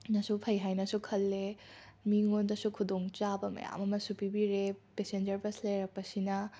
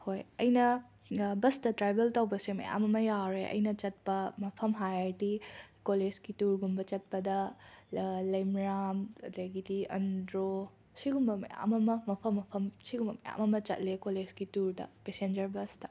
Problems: none marked